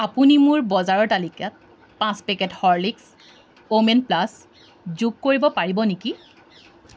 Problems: none marked